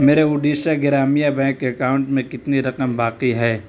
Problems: constant background noise